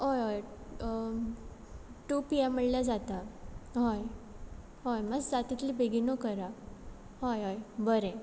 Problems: background sounds at intervals